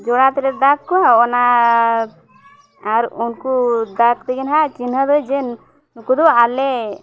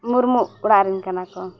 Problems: background sounds at intervals